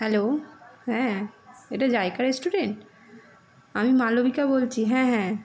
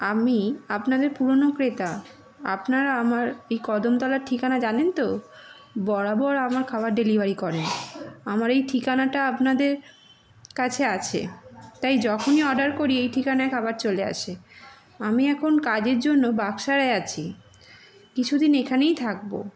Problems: constant background noise, continuous background conversations